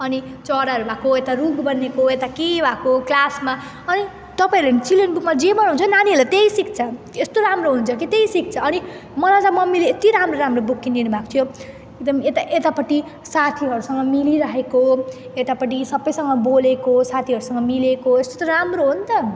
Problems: none marked